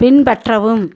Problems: none marked